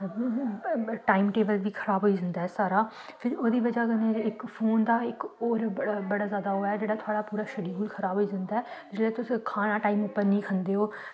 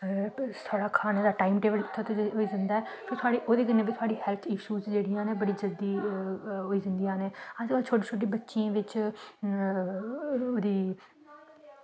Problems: constant background noise